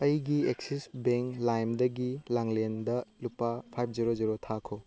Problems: none marked